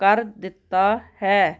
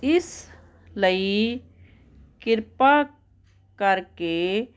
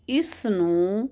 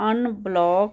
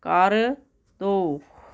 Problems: constant background noise